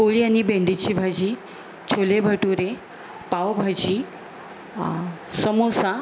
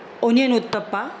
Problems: constant background noise